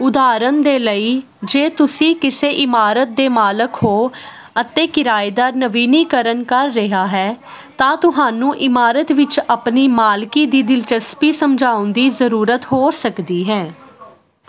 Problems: constant background noise